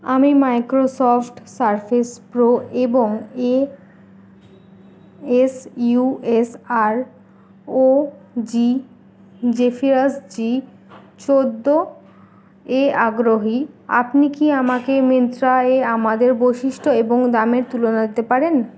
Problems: background sounds at intervals